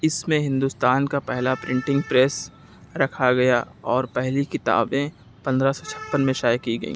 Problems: constant background noise